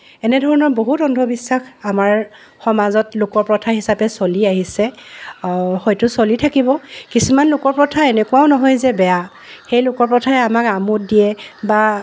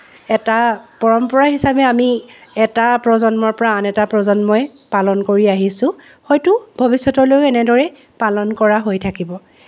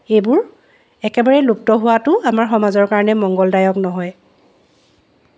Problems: none marked